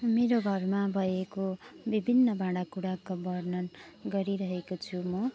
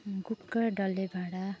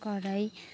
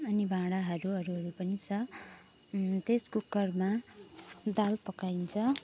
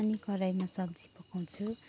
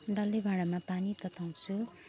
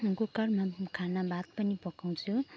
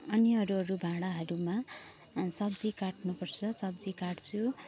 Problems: background sounds at intervals